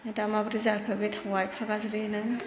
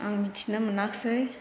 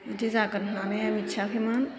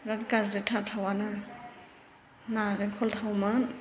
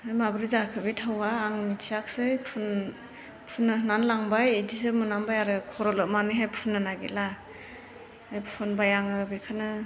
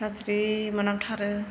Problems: constant background noise